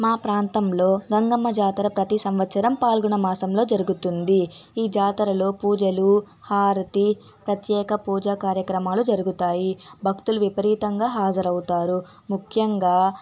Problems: none marked